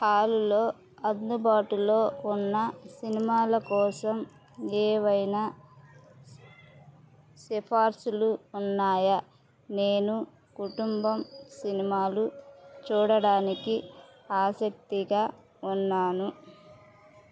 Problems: background sounds at intervals